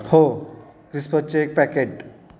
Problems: background sounds at intervals